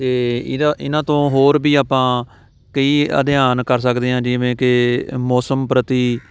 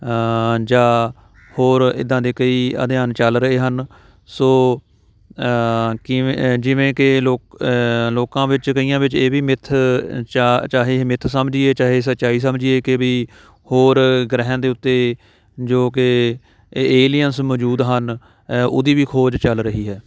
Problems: none marked